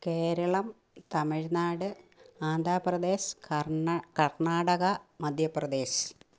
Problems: low volume